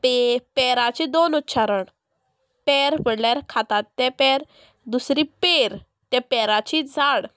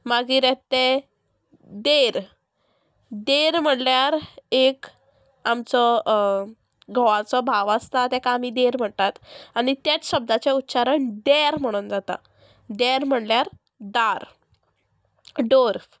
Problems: constant background noise